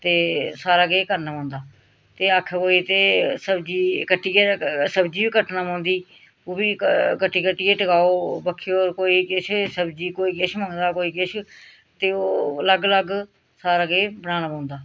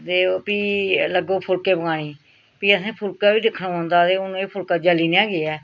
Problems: none marked